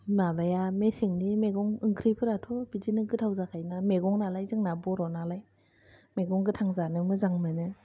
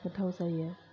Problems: low volume